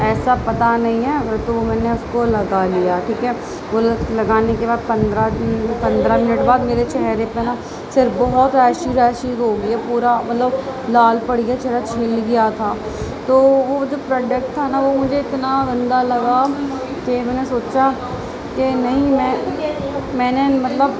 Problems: constant background noise, continuous background conversations